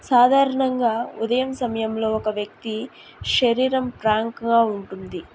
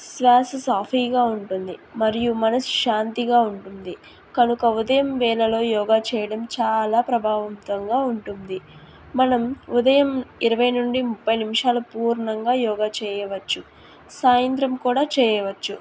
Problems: none marked